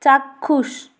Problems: constant background noise